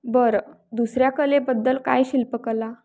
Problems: none marked